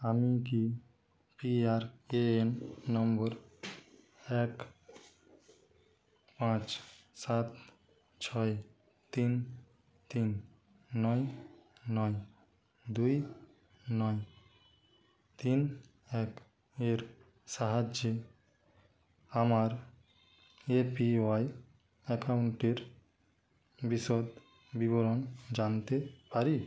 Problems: none marked